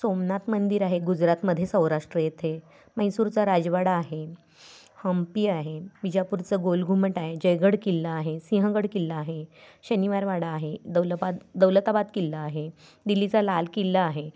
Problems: constant background noise